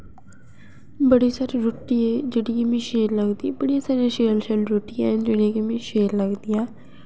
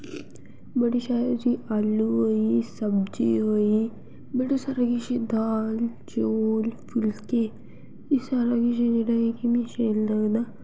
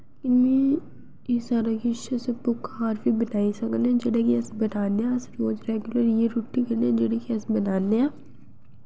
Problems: none marked